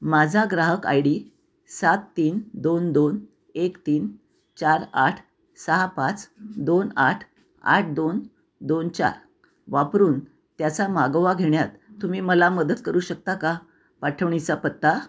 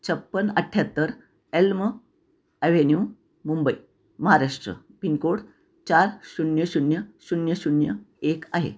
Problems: none marked